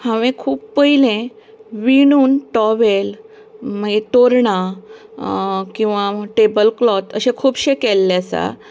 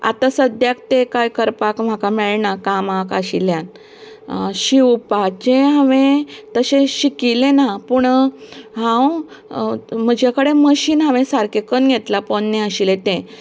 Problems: constant background noise